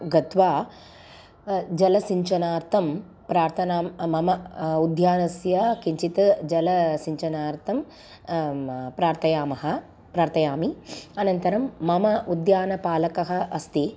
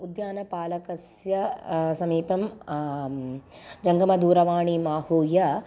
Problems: background sounds at intervals